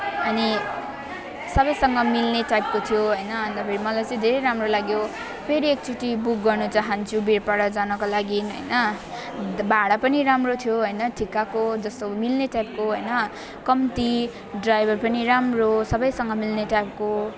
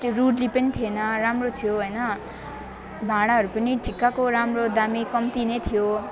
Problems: constant background noise